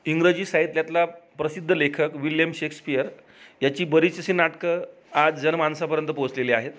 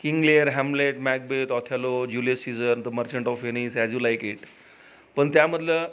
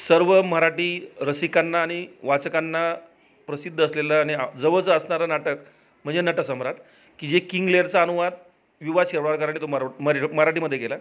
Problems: background sounds at intervals, background conversations at intervals